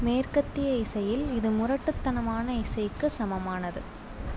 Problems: none marked